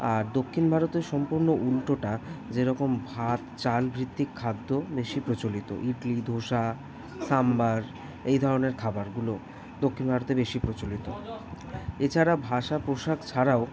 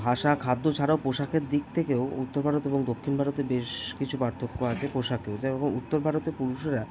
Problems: background sounds at intervals, continuous background conversations